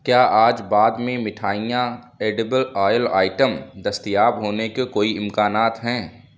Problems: none marked